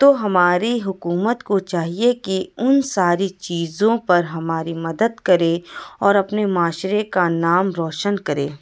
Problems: none marked